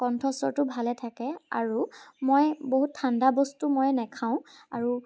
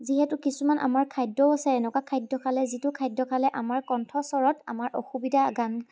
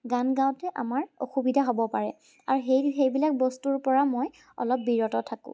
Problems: none marked